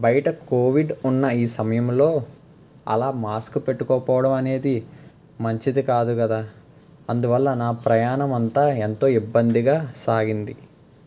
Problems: constant background noise